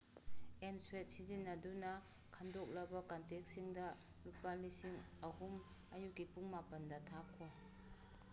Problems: background sounds at intervals